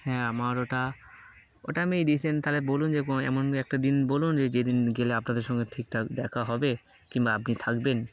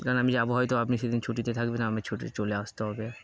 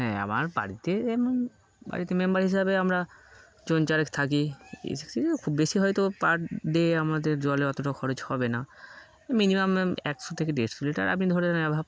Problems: constant background noise